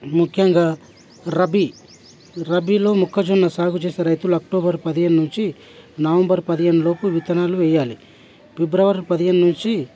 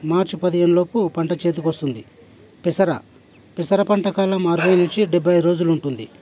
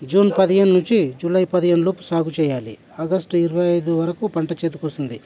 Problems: constant background noise, background conversations at intervals